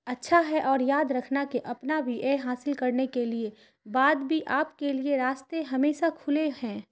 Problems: constant background noise